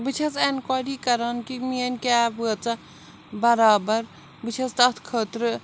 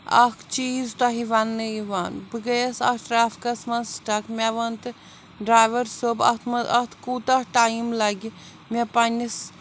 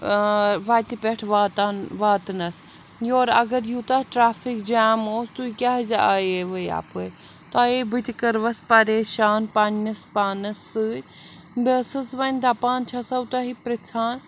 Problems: none marked